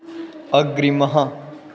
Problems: constant background noise